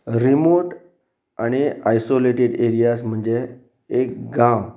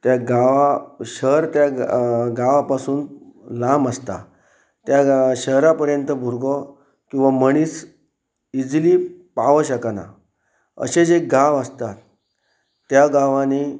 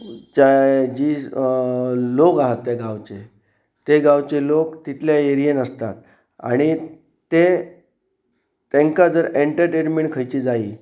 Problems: background sounds at intervals